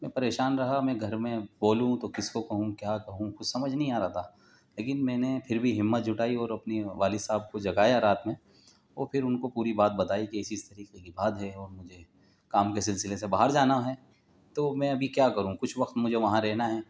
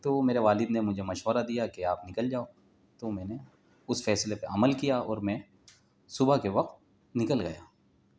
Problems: none marked